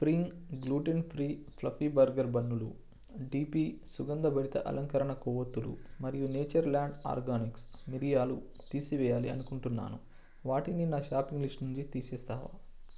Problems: low volume